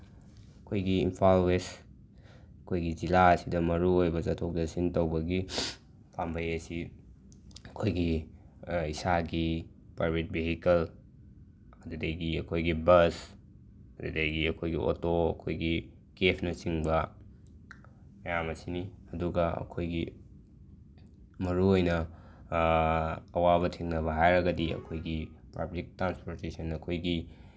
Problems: none marked